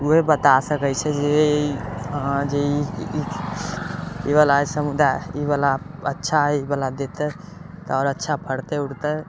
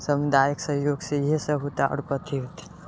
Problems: constant background noise